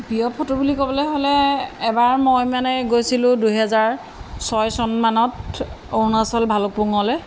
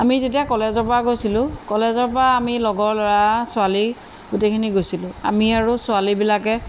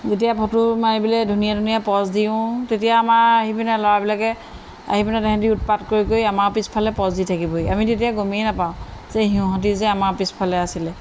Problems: constant background noise